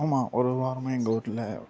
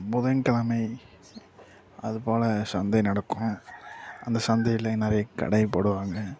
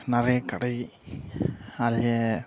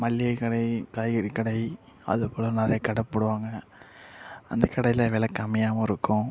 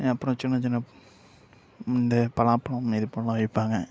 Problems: background sounds at intervals, low volume